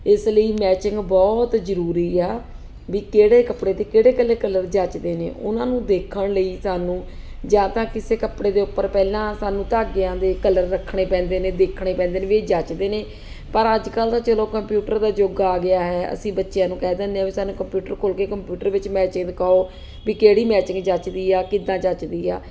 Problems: constant background noise